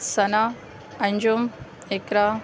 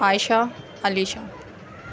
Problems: constant background noise